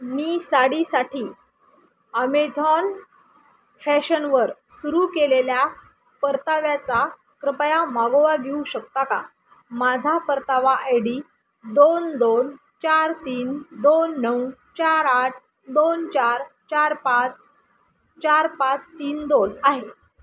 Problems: none marked